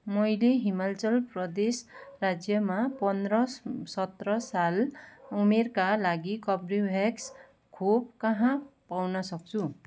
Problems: background sounds at intervals